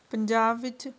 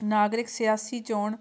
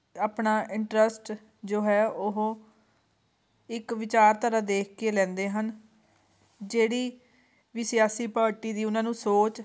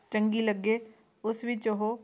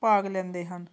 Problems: background sounds at intervals